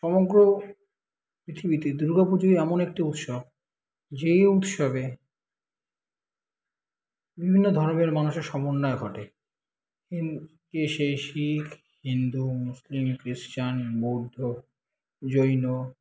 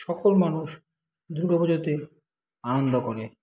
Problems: constant background noise